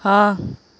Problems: none marked